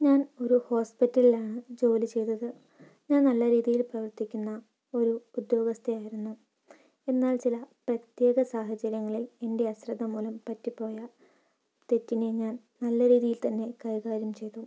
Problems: low volume